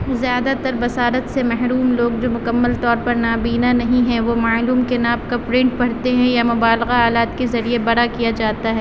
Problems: constant background noise